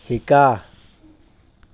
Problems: constant background noise